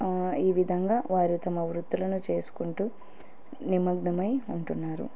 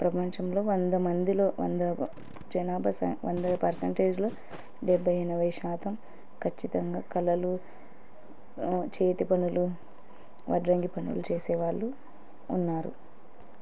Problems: none marked